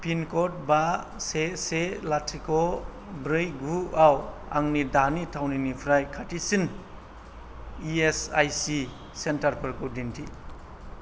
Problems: none marked